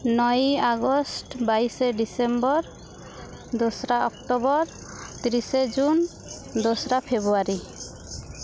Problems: constant background noise